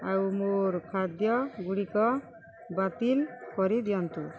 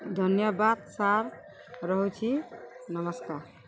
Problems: constant background noise